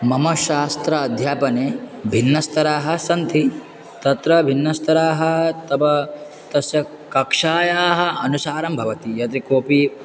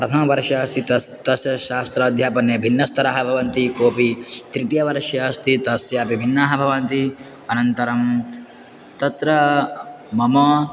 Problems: constant background noise, continuous background conversations